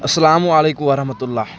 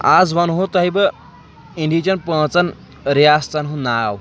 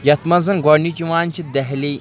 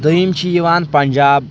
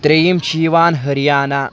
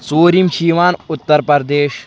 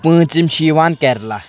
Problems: background sounds at intervals